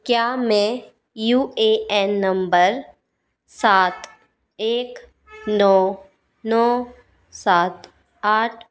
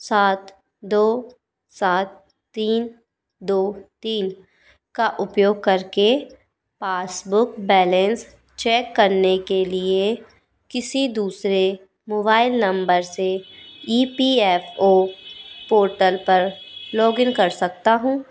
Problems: constant background noise